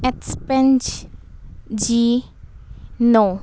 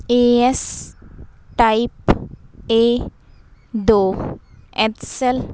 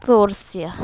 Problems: constant background noise